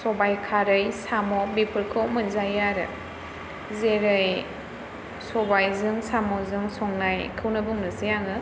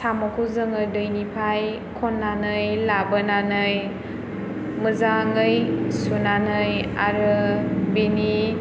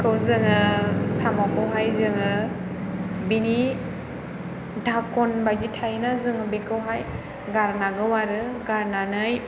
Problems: background sounds at intervals